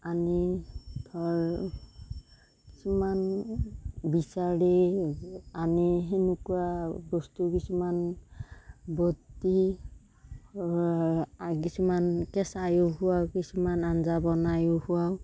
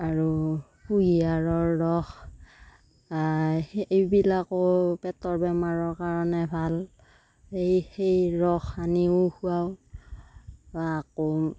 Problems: constant background noise